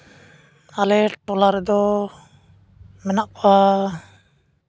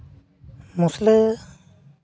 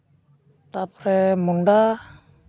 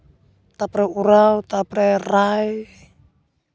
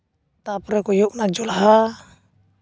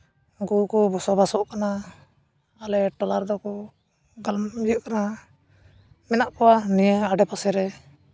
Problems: constant background noise